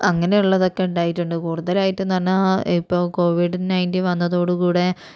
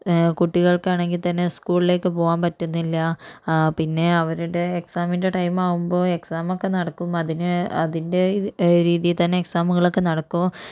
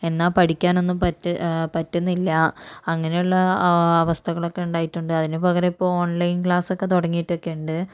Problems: none marked